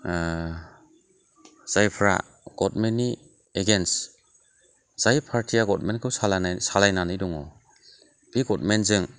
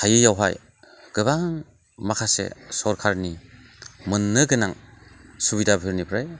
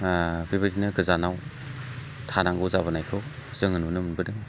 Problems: none marked